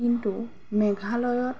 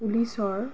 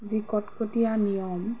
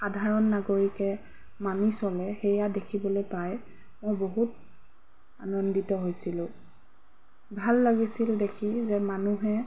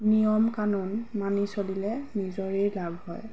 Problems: background sounds at intervals